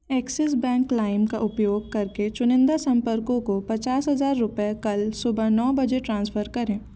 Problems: constant background noise